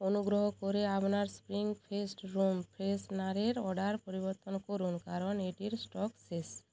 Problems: background conversations at intervals